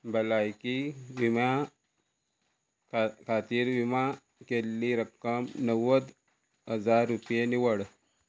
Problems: none marked